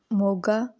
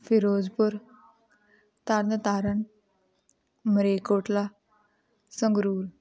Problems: continuous background conversations